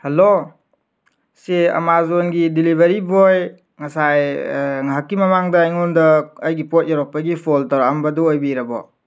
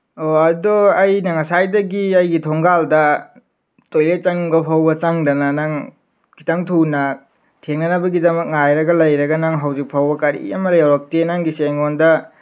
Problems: none marked